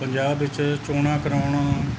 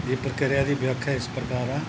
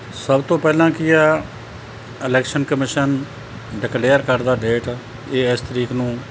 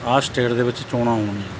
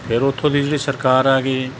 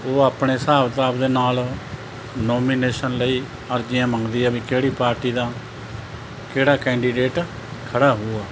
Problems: none marked